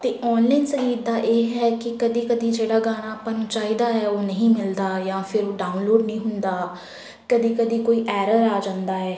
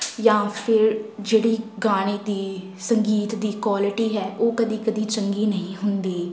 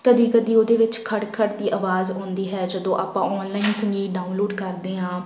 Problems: background sounds at intervals